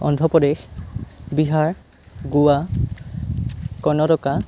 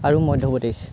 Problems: none marked